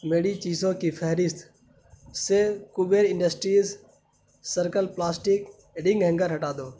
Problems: constant background noise